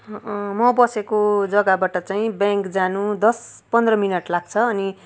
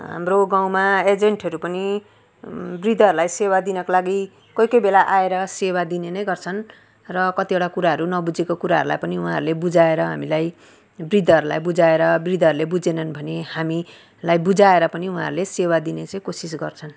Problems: background conversations at intervals